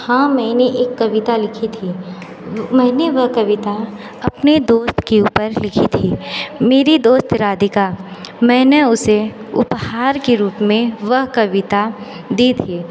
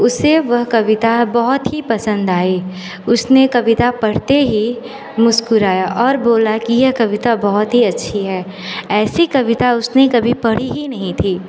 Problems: constant background noise, echo